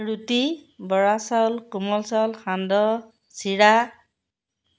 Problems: none marked